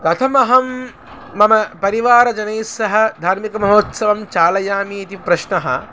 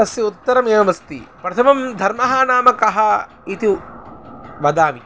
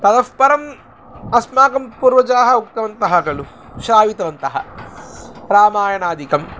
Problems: constant background noise